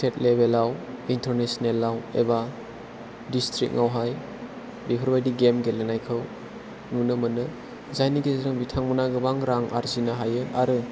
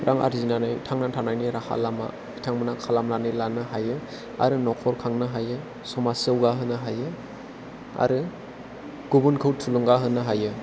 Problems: none marked